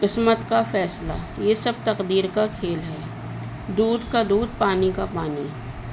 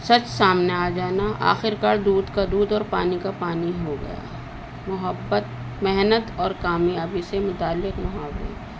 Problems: constant background noise, low volume